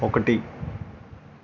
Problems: none marked